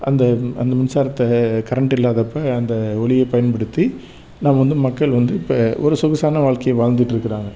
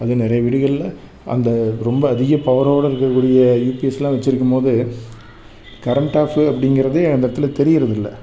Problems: background sounds at intervals